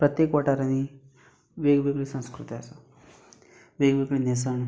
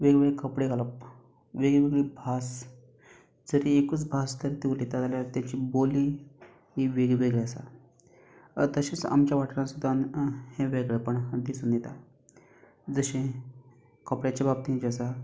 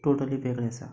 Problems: background sounds at intervals